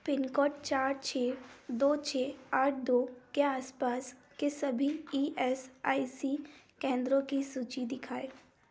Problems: background sounds at intervals